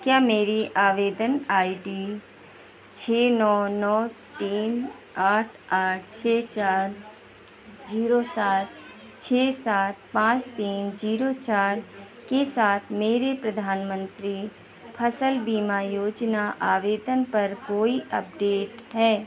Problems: none marked